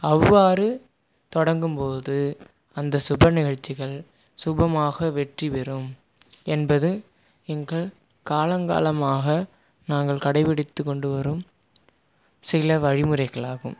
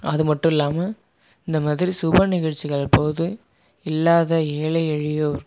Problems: background sounds at intervals